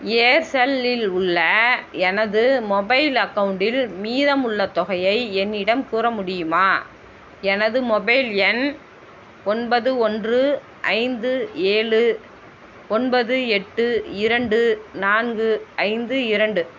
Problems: constant background noise